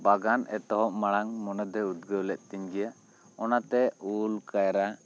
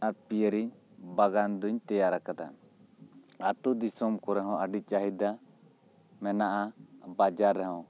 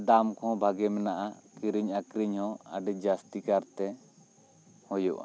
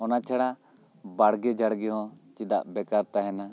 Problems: constant background noise